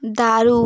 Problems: constant background noise